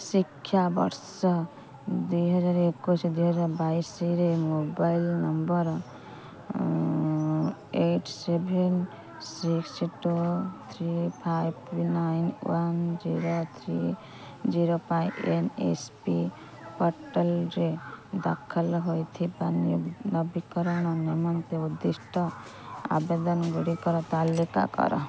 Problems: constant background noise, continuous background conversations